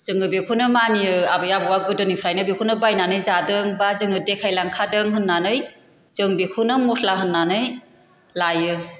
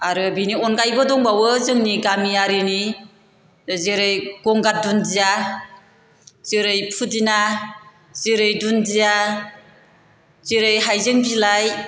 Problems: constant background noise